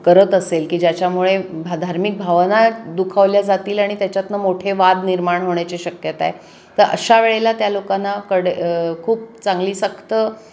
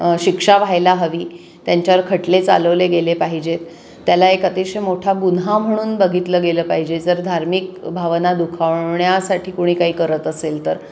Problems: constant background noise, background conversations at intervals